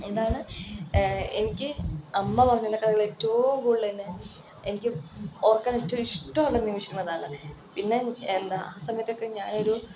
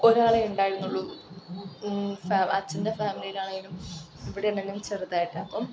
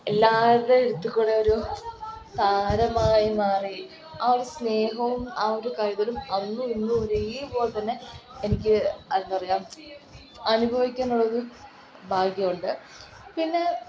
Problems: constant background noise